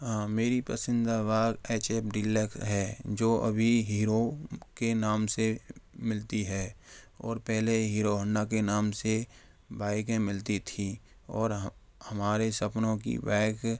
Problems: none marked